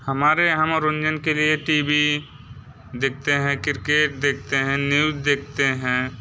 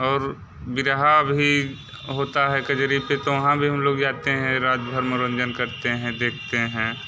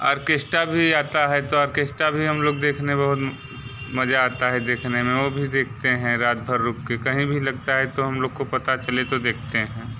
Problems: none marked